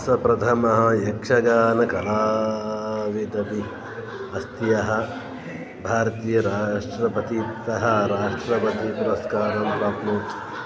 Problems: none marked